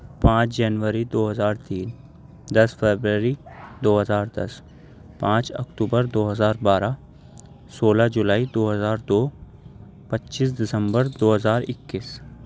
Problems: none marked